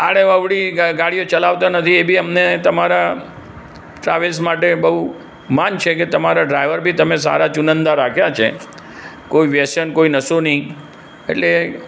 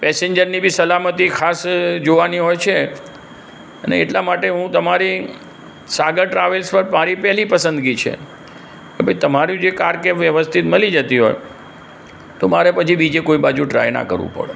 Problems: constant background noise